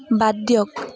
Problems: background sounds at intervals, background conversations at intervals